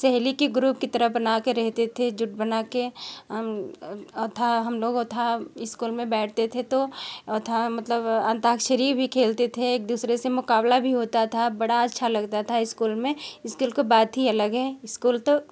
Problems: background sounds at intervals